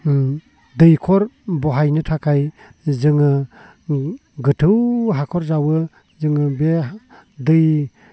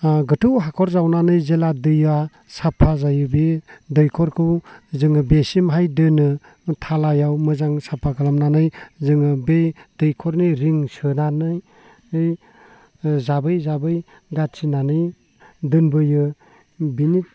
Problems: low volume